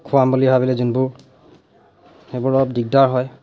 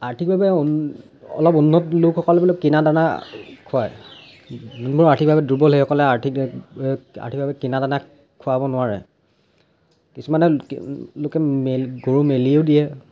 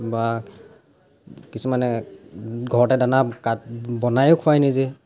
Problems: none marked